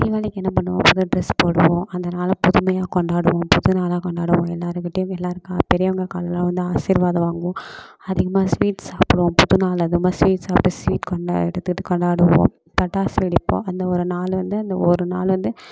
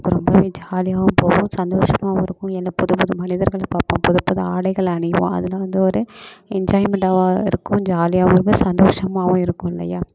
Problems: constant background noise